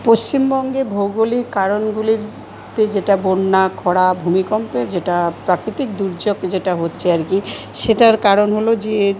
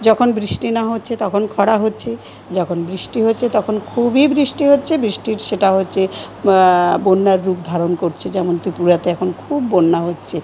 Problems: constant background noise